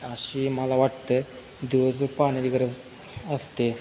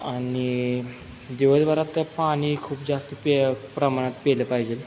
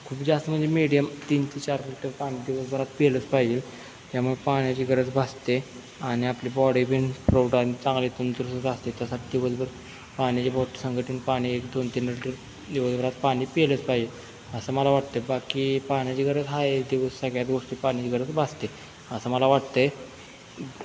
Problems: constant background noise